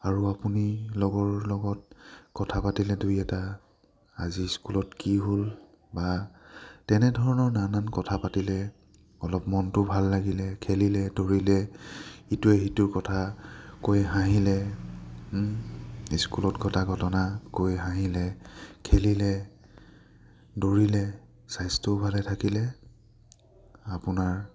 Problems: low volume